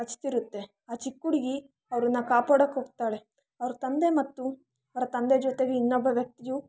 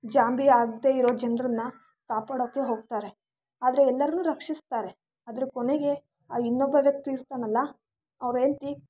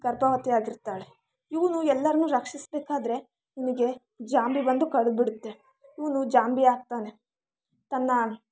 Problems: background sounds at intervals